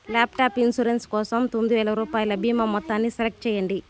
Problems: constant background noise